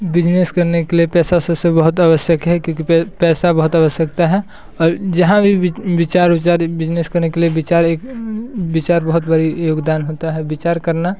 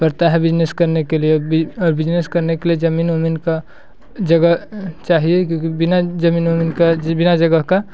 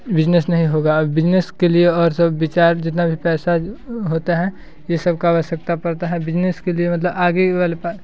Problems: constant background noise